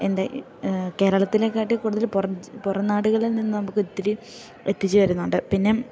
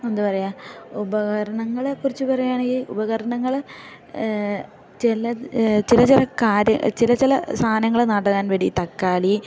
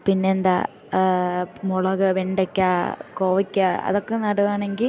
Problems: background sounds at intervals